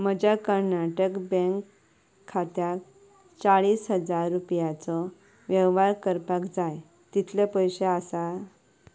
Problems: background sounds at intervals